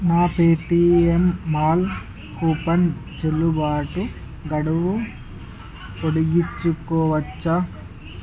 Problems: continuous background conversations